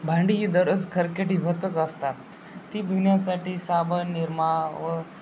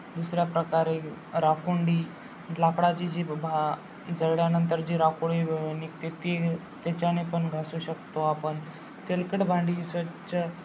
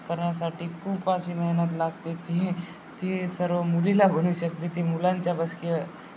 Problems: constant background noise, background conversations at intervals